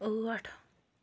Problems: none marked